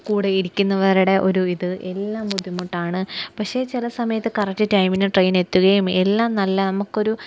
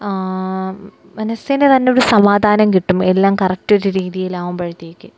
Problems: none marked